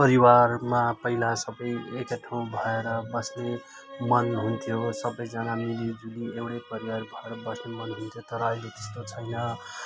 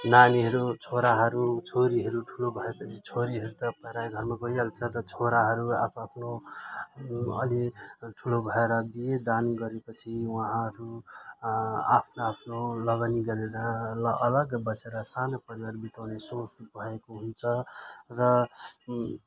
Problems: constant background noise, continuous background conversations